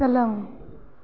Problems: low volume